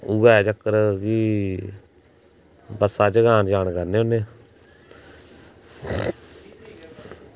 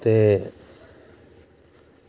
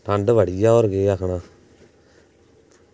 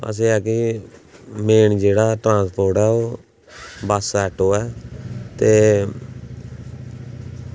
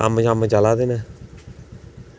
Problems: none marked